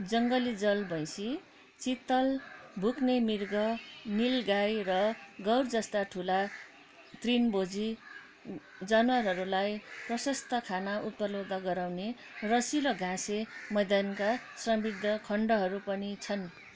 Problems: continuous background conversations